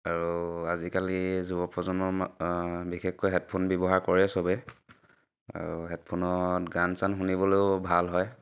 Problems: none marked